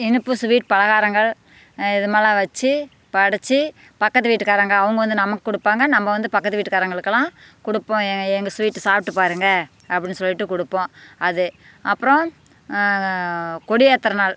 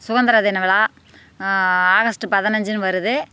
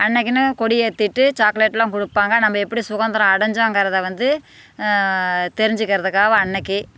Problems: constant background noise